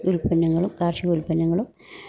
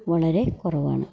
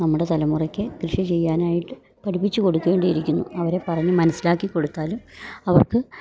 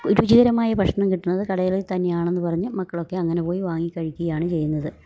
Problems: none marked